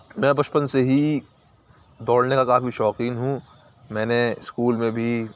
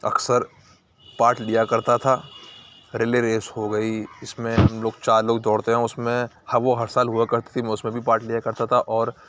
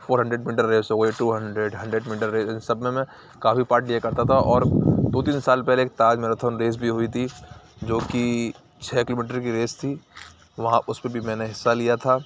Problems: none marked